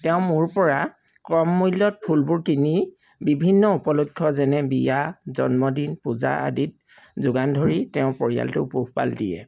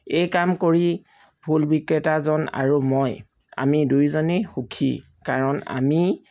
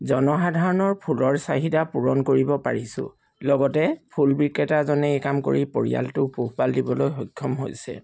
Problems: background sounds at intervals